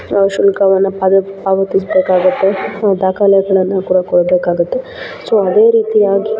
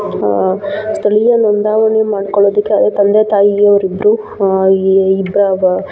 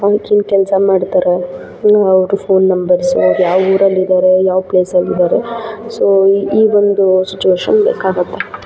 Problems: background sounds at intervals